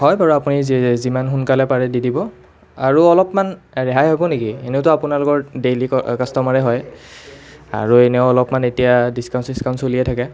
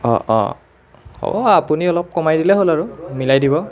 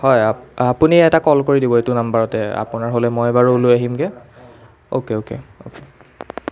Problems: continuous background conversations